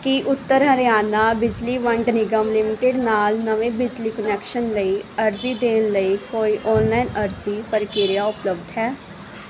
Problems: none marked